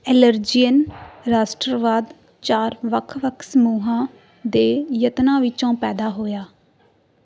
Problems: background sounds at intervals